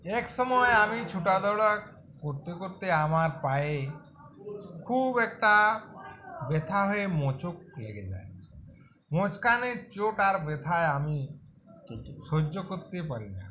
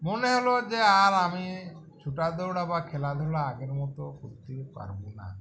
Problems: continuous background conversations